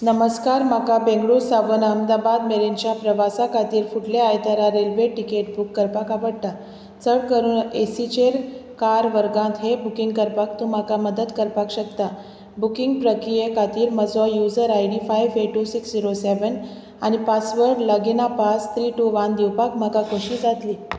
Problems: constant background noise